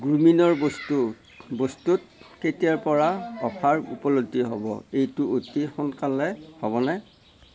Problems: background sounds at intervals, background conversations at intervals